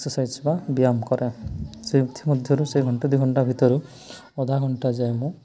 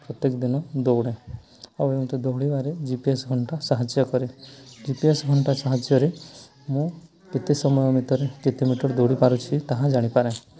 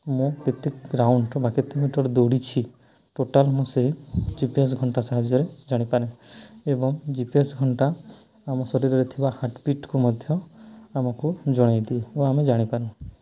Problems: continuous background conversations